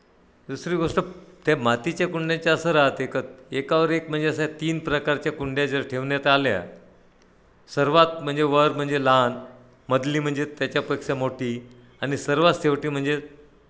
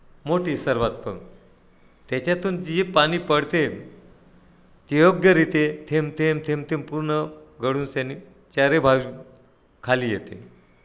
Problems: none marked